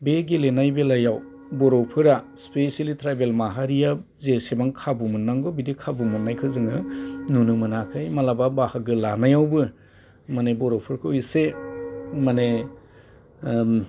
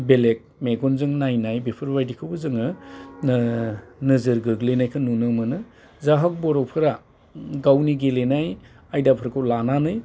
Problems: constant background noise